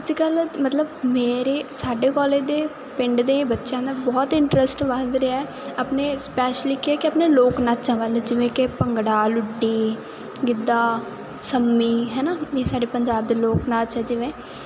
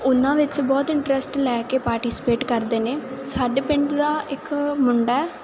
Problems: none marked